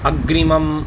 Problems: constant background noise